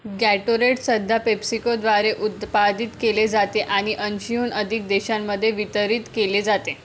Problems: constant background noise